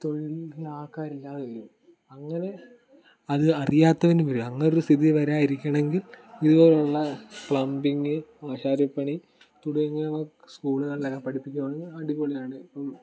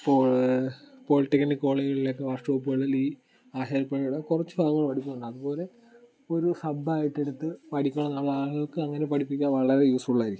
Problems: background sounds at intervals